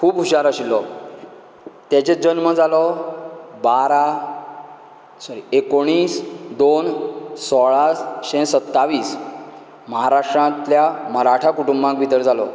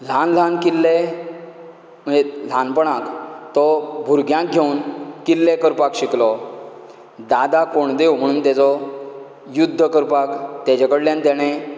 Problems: none marked